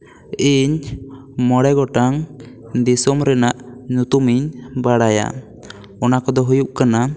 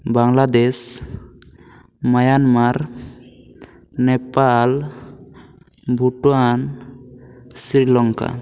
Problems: echo